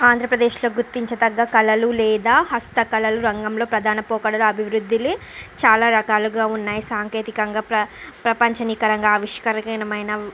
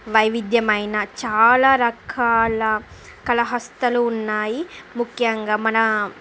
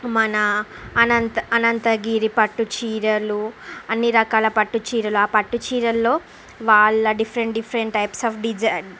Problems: background sounds at intervals